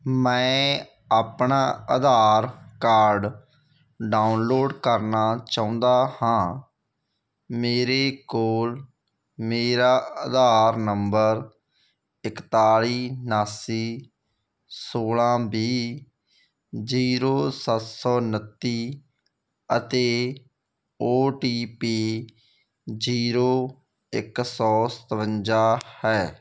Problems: none marked